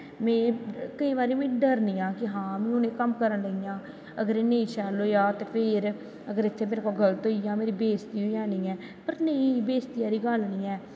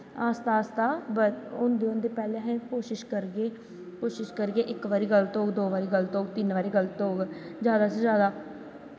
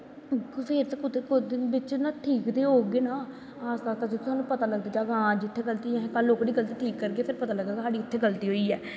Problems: constant background noise, continuous background conversations